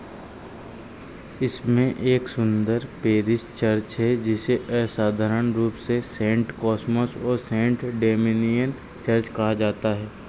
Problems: constant background noise